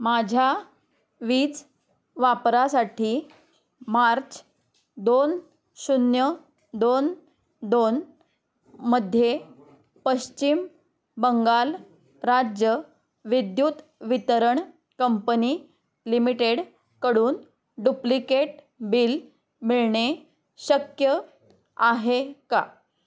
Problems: none marked